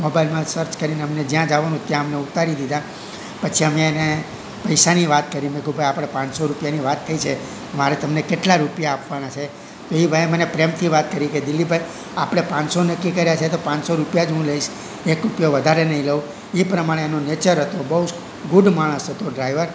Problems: constant background noise